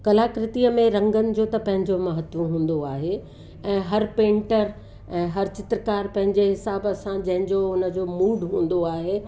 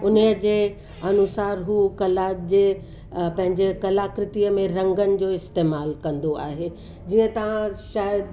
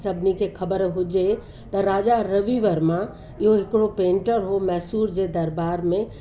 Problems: constant background noise, echo